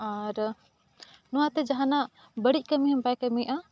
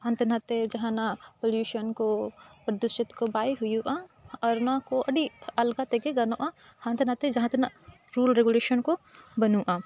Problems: constant background noise